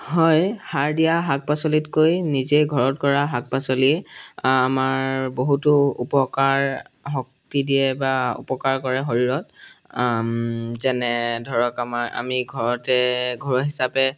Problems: background sounds at intervals